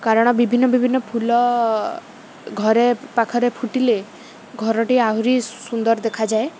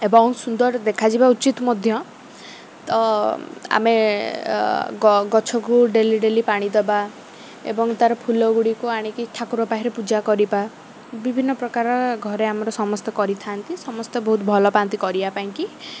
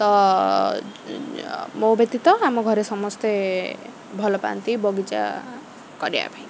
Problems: constant background noise